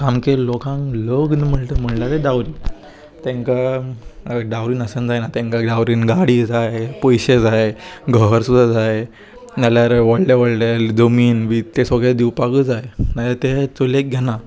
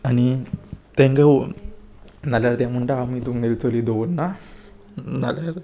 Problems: constant background noise